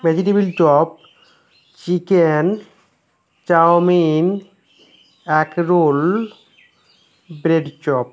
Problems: constant background noise